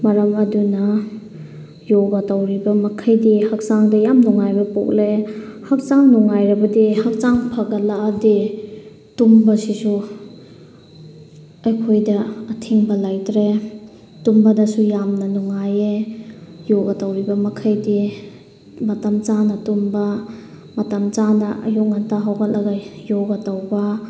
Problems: background sounds at intervals